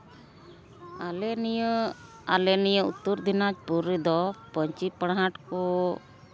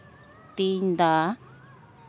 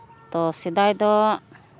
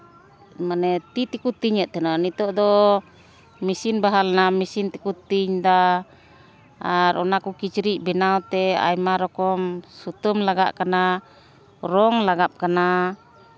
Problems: none marked